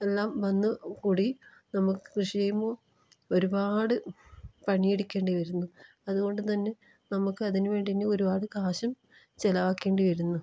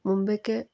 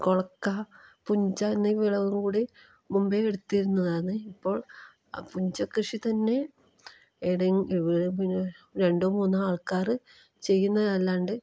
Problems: low volume